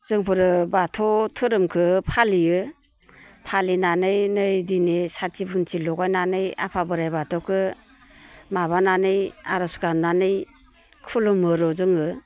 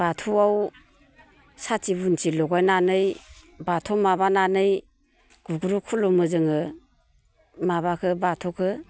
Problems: constant background noise